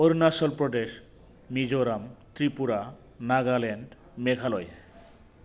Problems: constant background noise